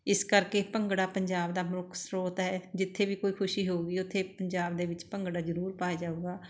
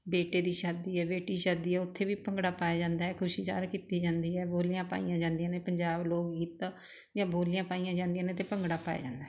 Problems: constant background noise